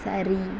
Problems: none marked